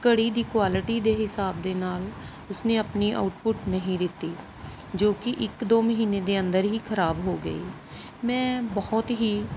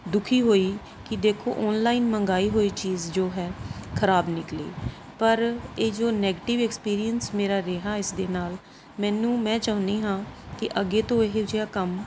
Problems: constant background noise